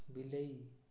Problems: low volume